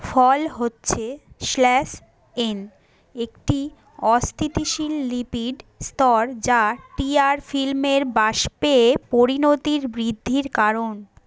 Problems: background conversations at intervals